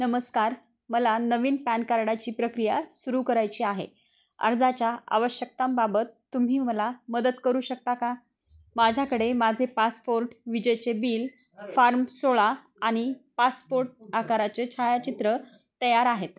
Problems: constant background noise, continuous background conversations